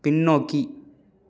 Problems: none marked